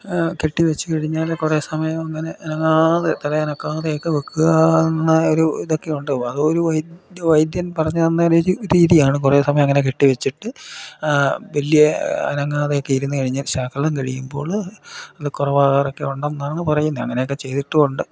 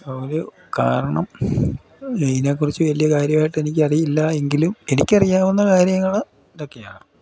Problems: constant background noise, low volume